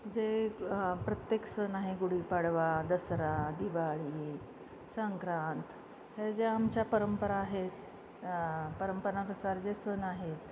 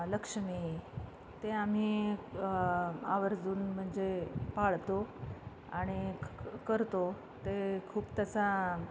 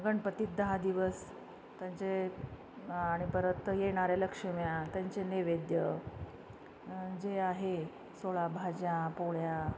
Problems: constant background noise